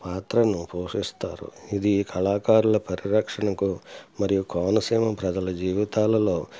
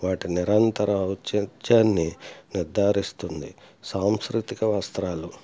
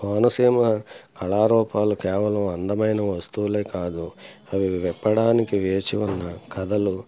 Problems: background sounds at intervals